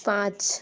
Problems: constant background noise